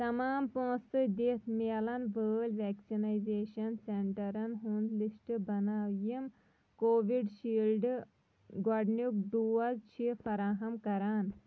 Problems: background sounds at intervals, low volume